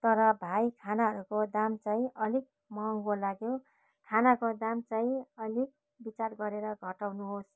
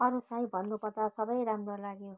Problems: none marked